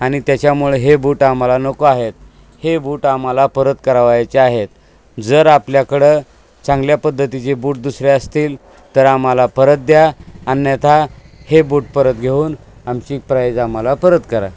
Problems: constant background noise